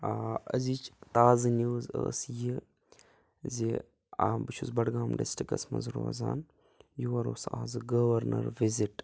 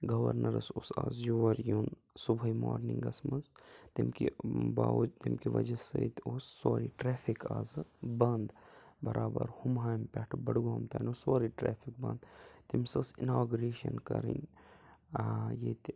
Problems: background sounds at intervals